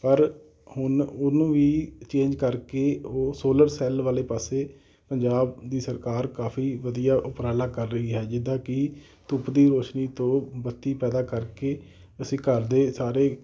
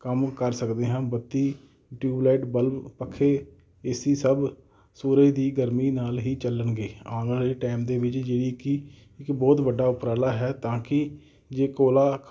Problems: none marked